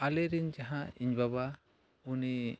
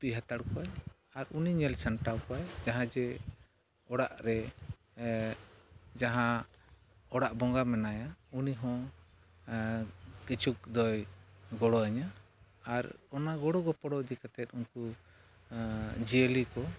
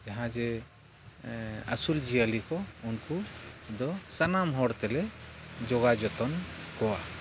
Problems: background sounds at intervals, low volume